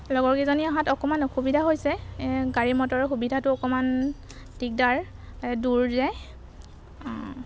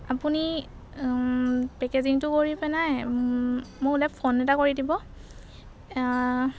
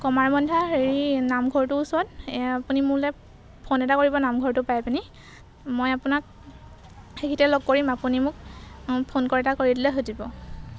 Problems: background sounds at intervals